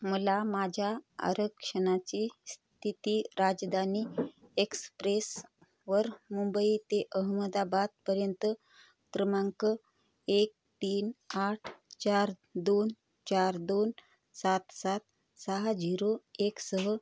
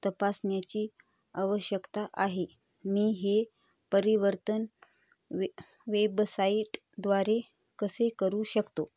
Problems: none marked